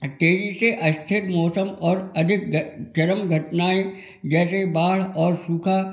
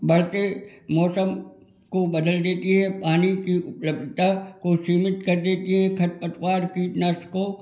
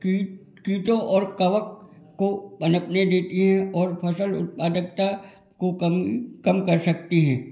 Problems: background sounds at intervals, background conversations at intervals